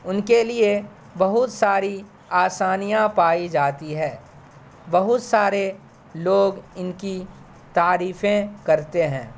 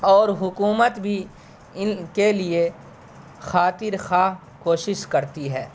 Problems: constant background noise